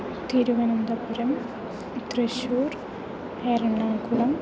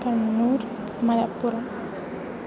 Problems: constant background noise, continuous background conversations